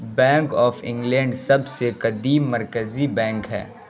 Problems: constant background noise